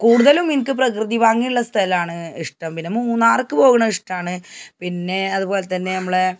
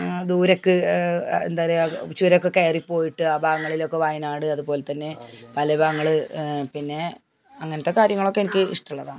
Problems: none marked